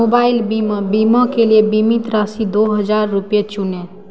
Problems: none marked